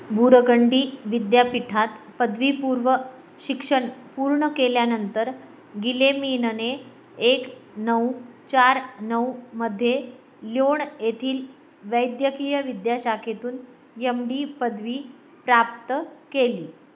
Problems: background sounds at intervals